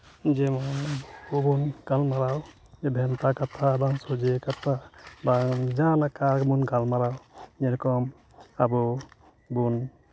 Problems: constant background noise